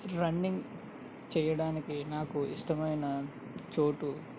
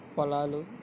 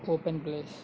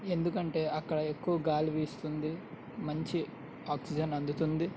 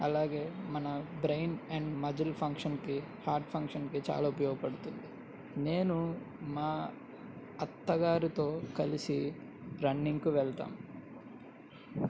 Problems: none marked